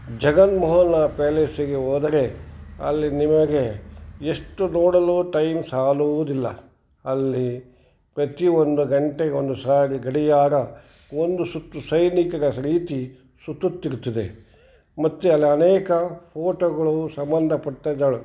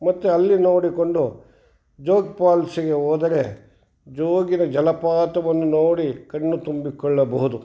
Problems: background conversations at intervals